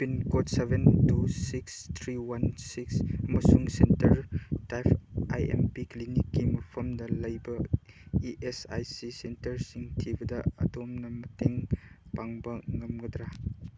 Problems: background sounds at intervals